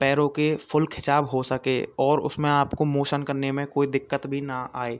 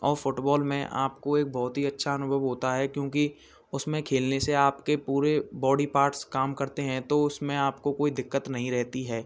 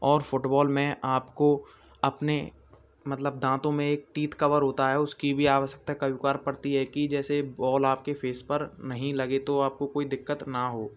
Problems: background sounds at intervals